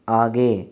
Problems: none marked